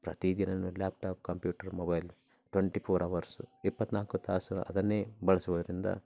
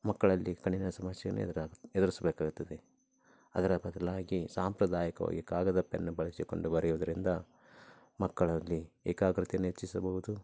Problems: low volume